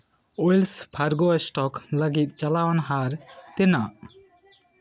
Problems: background sounds at intervals, background conversations at intervals